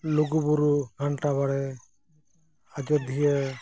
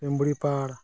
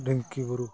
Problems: none marked